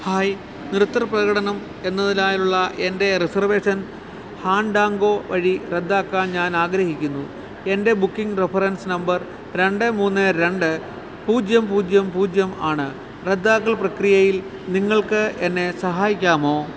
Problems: none marked